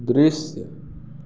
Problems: none marked